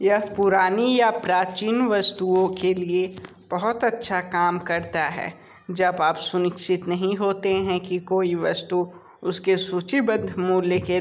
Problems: constant background noise, background conversations at intervals